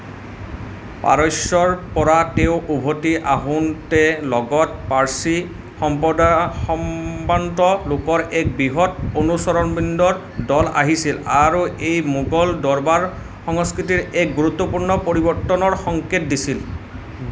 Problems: constant background noise